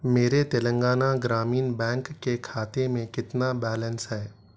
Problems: none marked